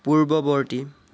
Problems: constant background noise